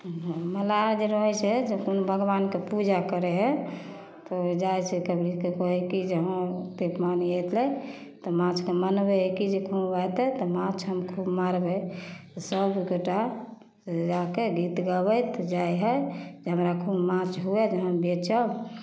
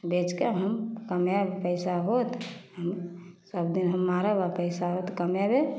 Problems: none marked